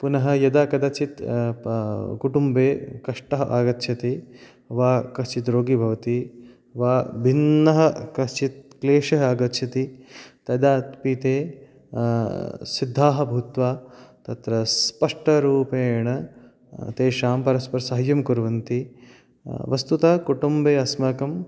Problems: background sounds at intervals